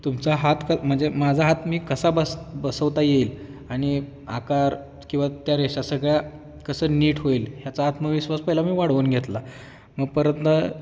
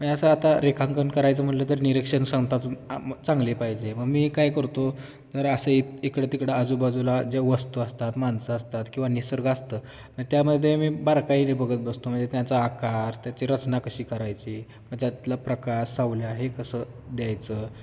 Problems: constant background noise, background conversations at intervals